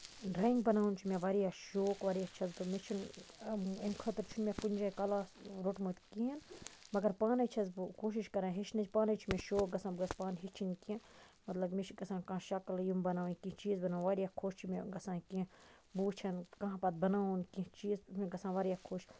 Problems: constant background noise, low volume